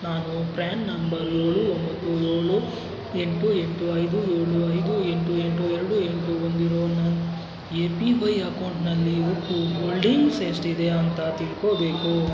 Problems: constant background noise